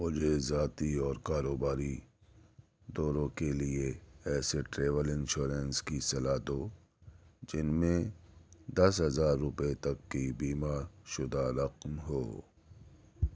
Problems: none marked